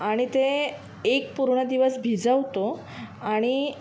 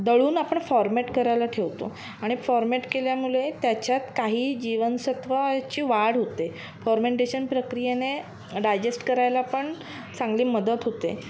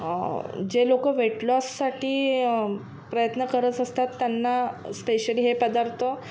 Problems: none marked